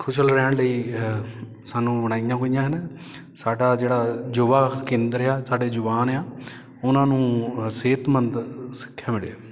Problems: background sounds at intervals, background conversations at intervals